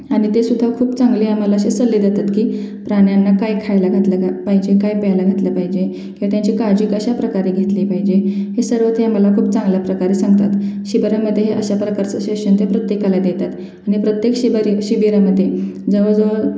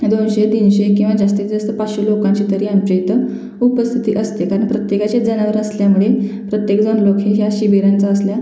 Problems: constant background noise, continuous background conversations, echo